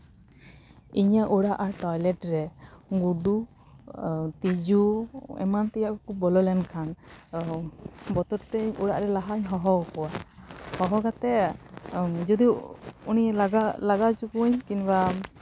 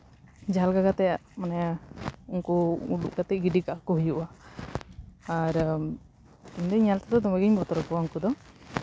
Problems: constant background noise